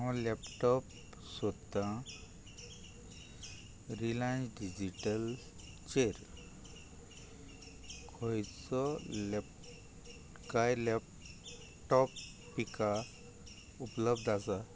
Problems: low volume